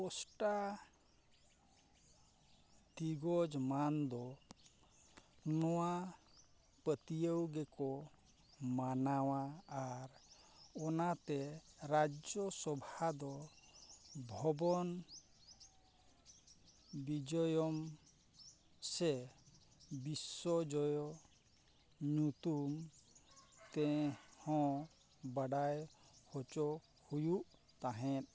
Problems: none marked